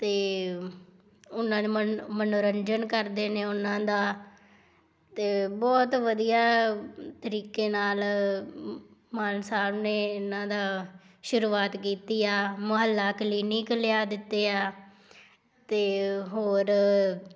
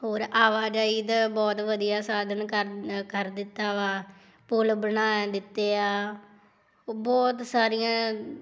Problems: background sounds at intervals